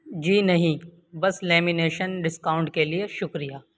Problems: constant background noise